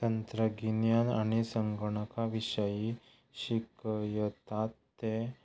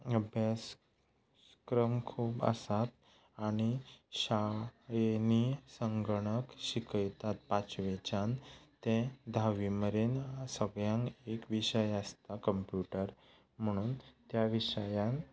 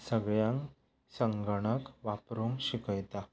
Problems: background conversations at intervals